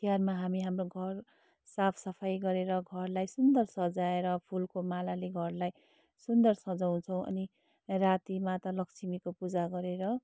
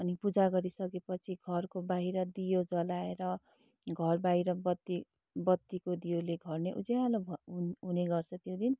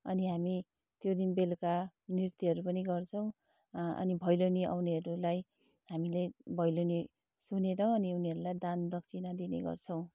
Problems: none marked